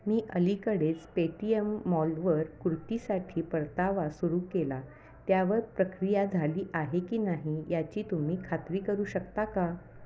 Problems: constant background noise, background conversations at intervals